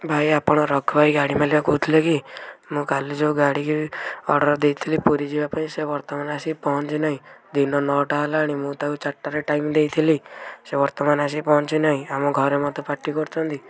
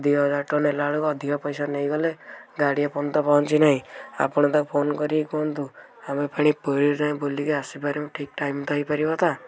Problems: background conversations at intervals